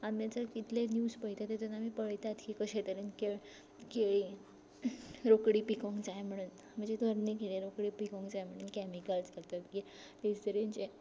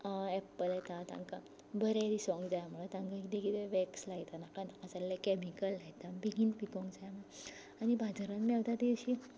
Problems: background sounds at intervals, low volume